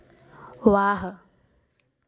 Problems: none marked